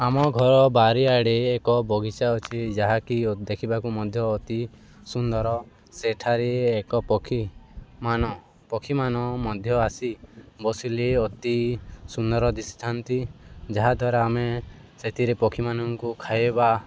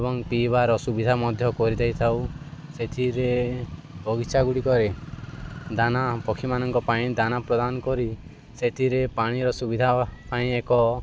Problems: constant background noise